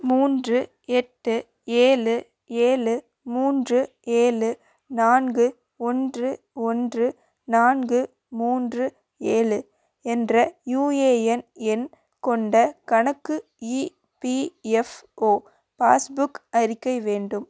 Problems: none marked